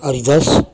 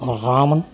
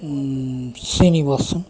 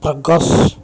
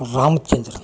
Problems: continuous background conversations